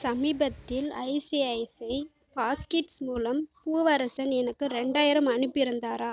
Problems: none marked